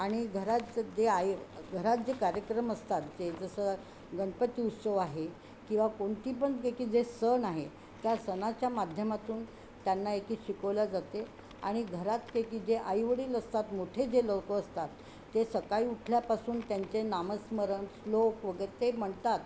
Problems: none marked